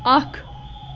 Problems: constant background noise